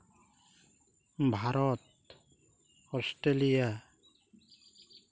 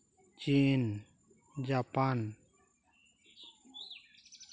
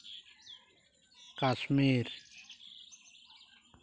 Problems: constant background noise